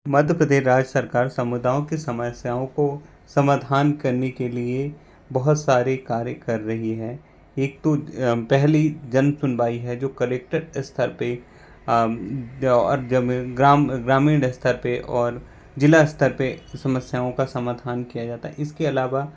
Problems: constant background noise